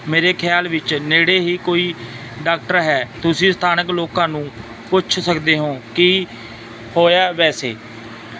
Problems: constant background noise